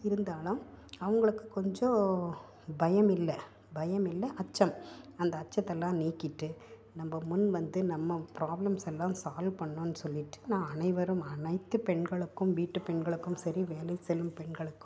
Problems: none marked